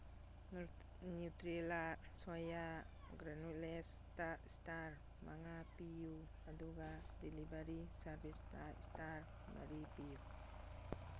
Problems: none marked